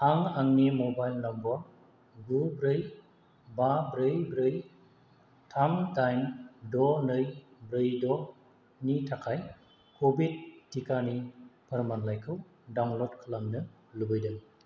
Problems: constant background noise